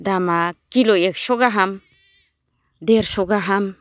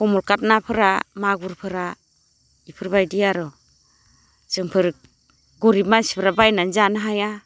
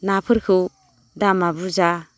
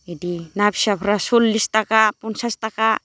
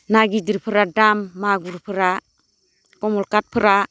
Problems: low volume